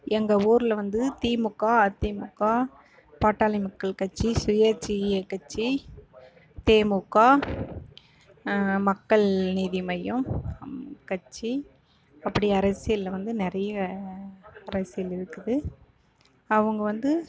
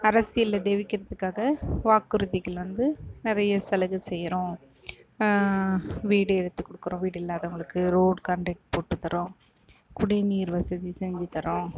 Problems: none marked